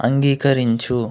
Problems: none marked